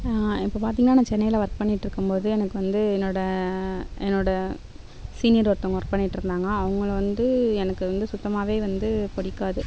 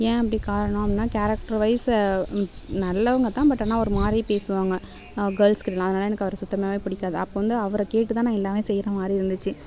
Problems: background sounds at intervals